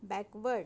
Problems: low volume